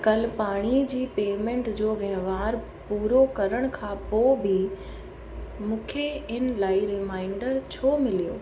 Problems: constant background noise, echo